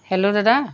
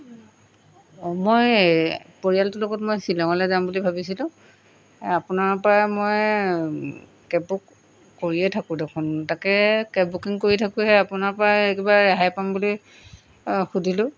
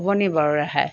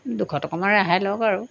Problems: background sounds at intervals